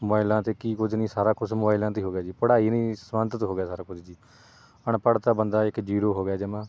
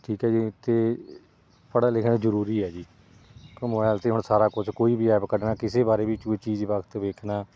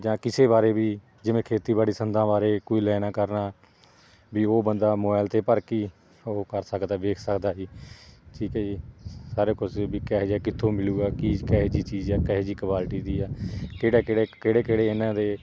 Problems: background sounds at intervals